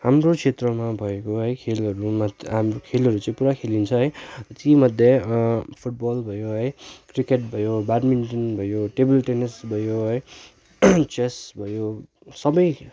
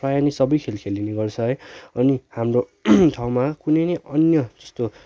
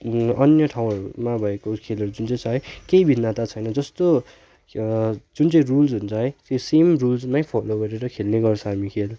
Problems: none marked